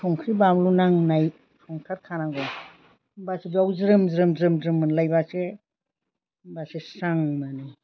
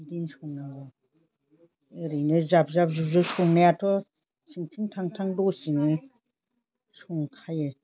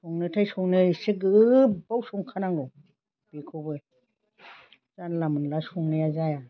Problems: constant background noise